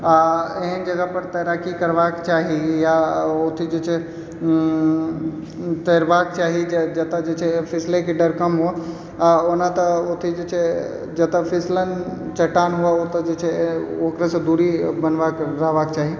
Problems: background sounds at intervals